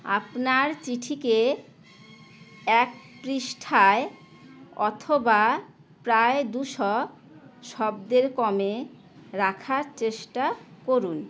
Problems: constant background noise